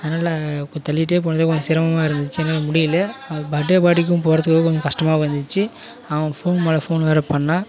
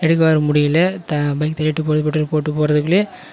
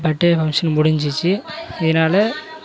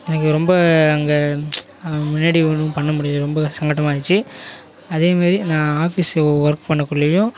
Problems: none marked